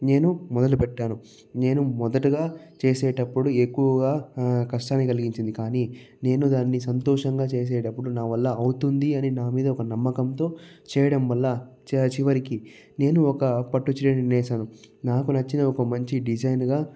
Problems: low volume